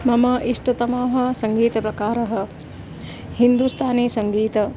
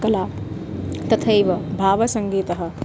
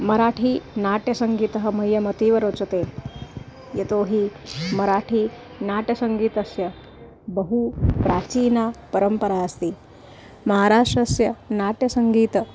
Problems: background sounds at intervals